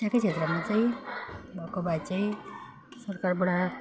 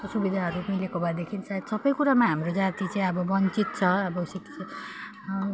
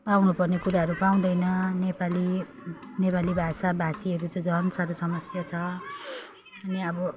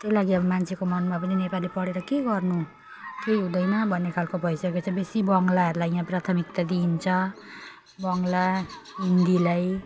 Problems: none marked